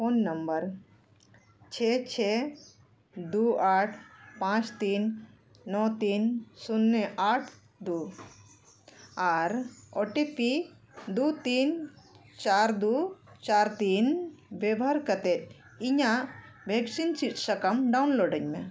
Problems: none marked